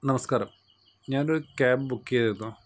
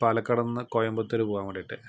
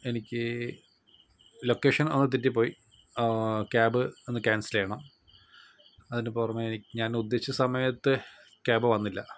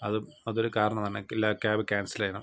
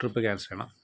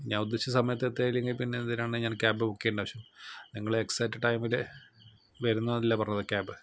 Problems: none marked